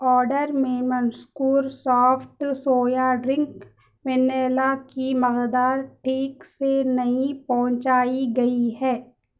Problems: none marked